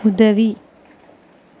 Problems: constant background noise